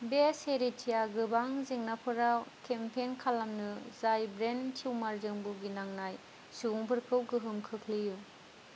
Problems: constant background noise